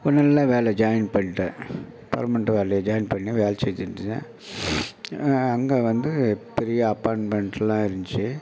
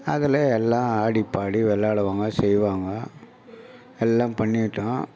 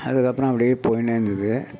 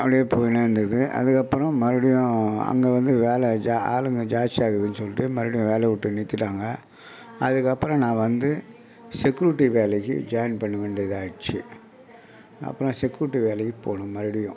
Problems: none marked